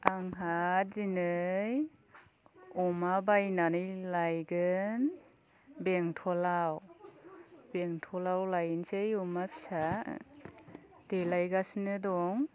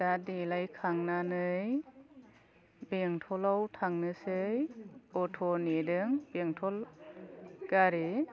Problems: low volume